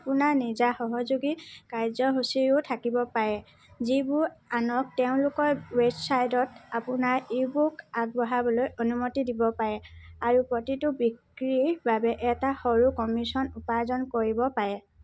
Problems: constant background noise